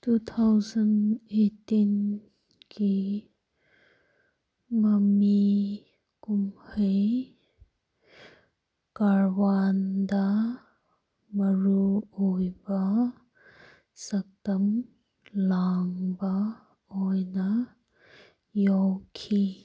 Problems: none marked